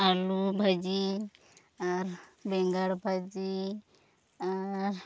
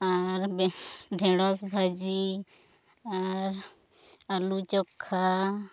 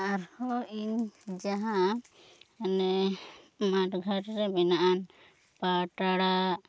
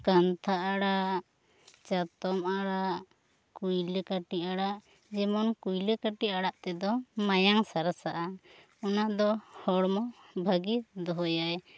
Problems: none marked